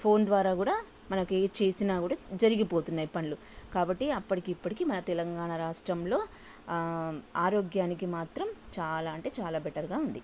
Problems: constant background noise